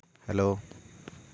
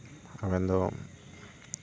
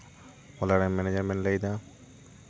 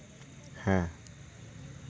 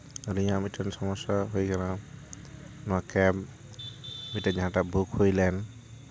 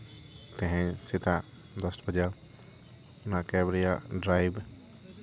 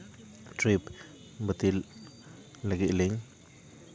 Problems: constant background noise, background conversations at intervals